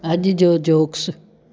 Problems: constant background noise